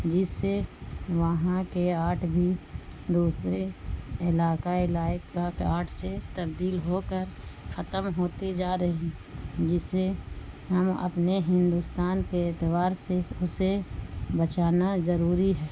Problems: constant background noise